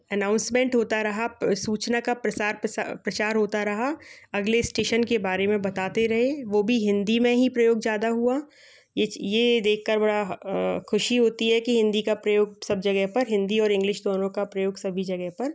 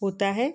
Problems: background sounds at intervals